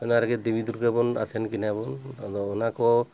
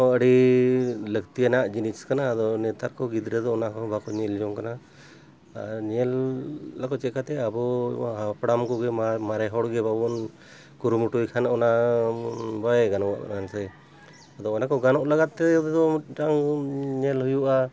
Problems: none marked